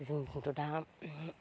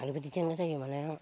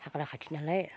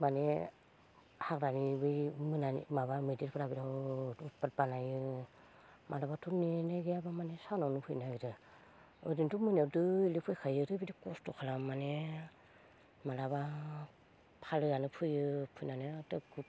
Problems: low volume